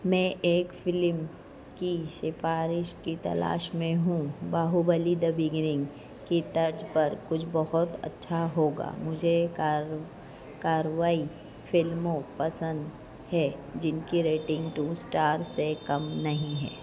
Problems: constant background noise, low volume